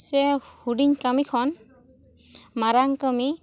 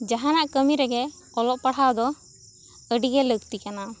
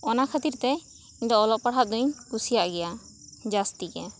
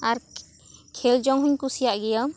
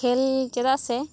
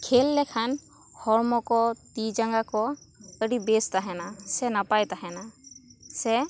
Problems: continuous background conversations